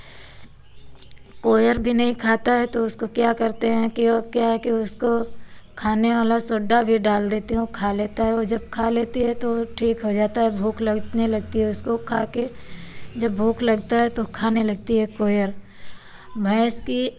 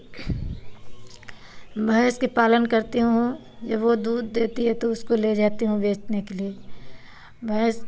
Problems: none marked